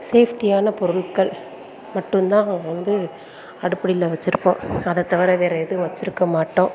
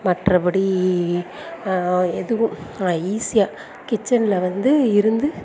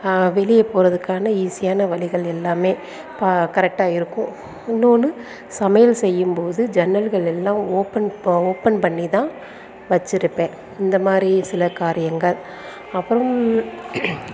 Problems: background sounds at intervals